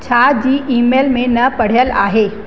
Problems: constant background noise, echo